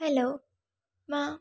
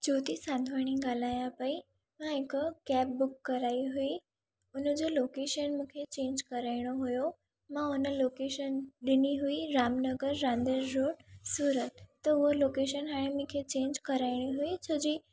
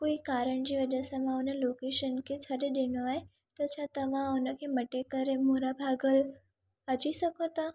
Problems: none marked